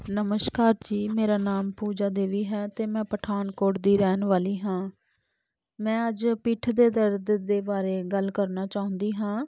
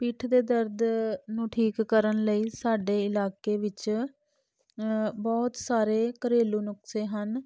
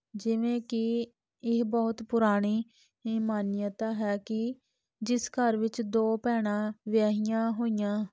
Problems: none marked